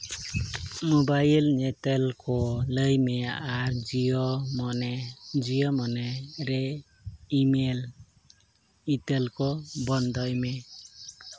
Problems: background sounds at intervals